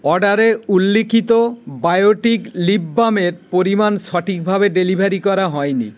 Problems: constant background noise